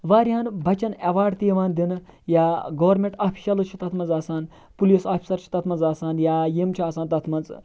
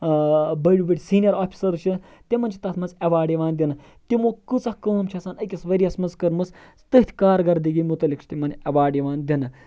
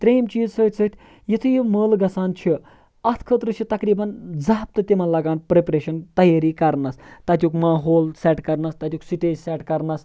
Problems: background sounds at intervals